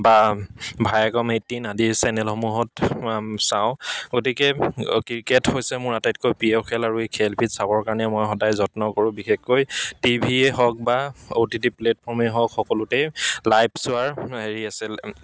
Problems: background sounds at intervals, background conversations at intervals